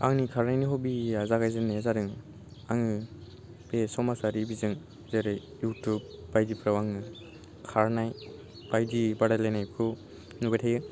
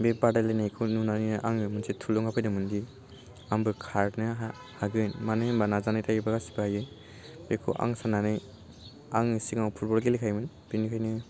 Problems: none marked